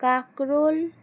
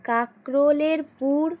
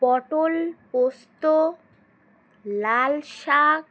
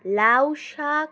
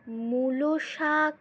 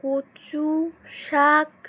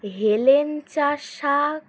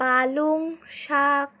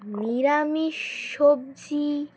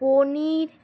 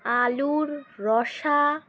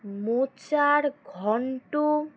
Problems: constant background noise